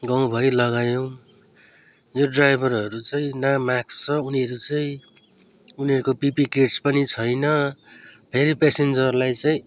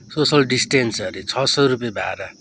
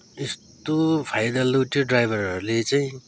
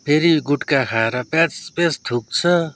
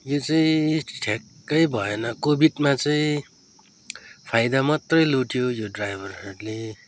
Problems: background sounds at intervals